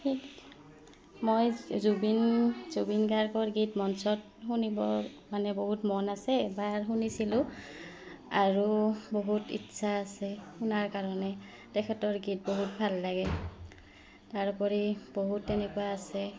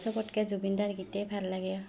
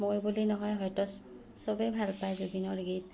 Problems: background sounds at intervals